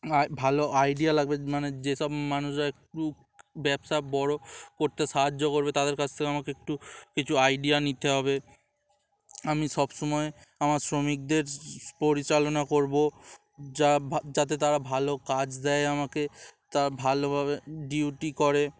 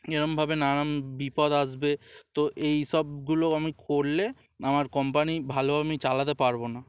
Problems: none marked